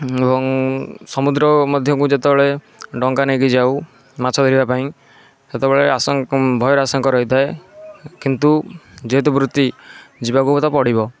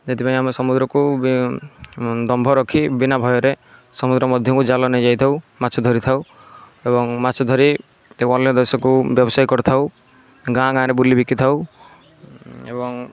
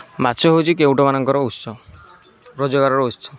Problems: none marked